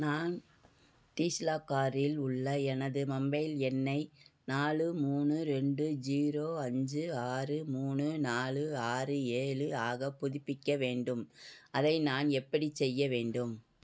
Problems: background conversations at intervals